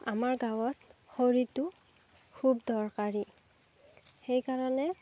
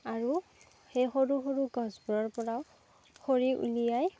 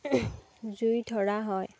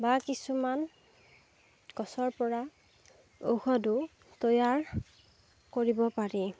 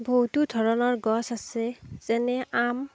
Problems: background sounds at intervals